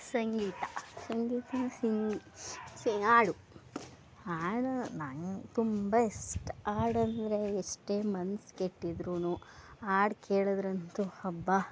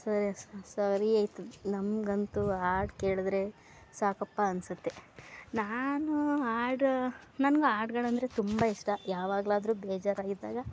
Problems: background sounds at intervals